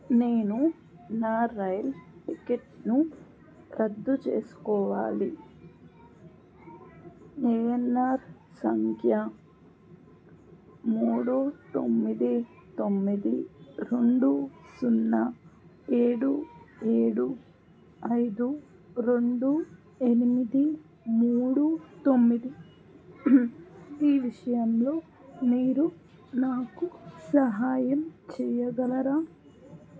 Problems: background sounds at intervals